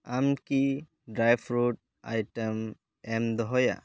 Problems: none marked